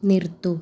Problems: none marked